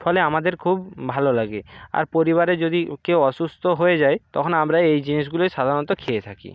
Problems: background sounds at intervals